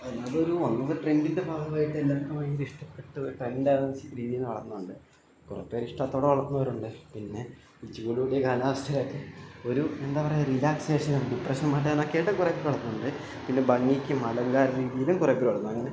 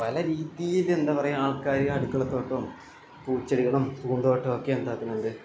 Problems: background sounds at intervals, low volume